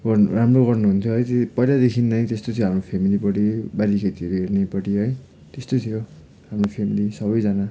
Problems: background sounds at intervals